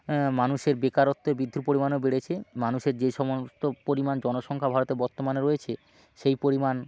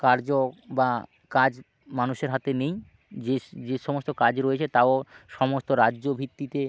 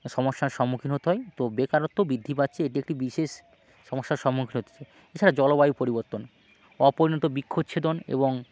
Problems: background sounds at intervals, background conversations at intervals